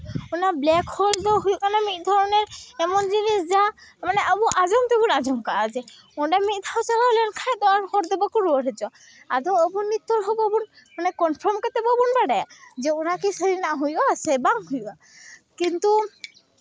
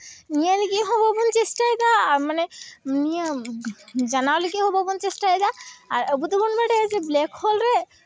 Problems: constant background noise